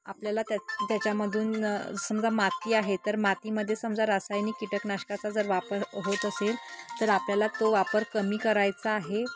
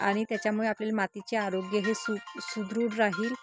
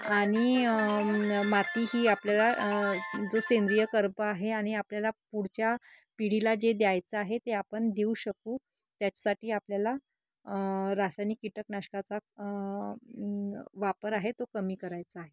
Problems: background sounds at intervals